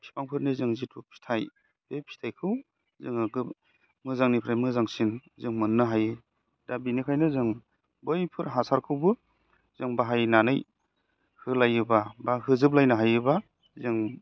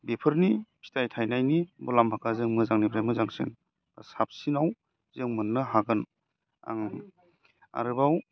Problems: none marked